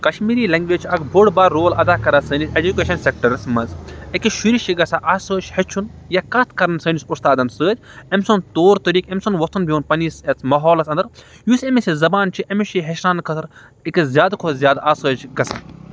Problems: none marked